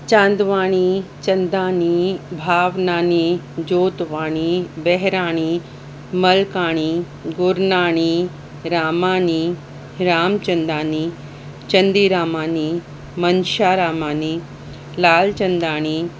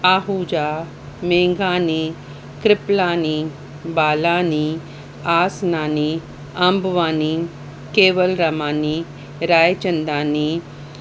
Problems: constant background noise